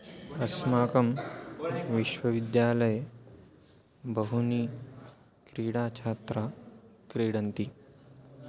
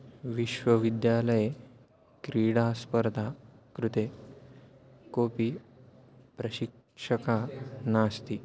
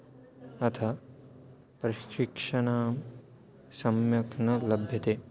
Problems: background conversations at intervals